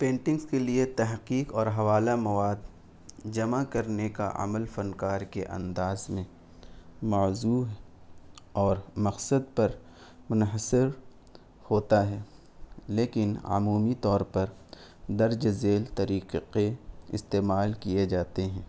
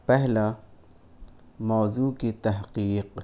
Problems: constant background noise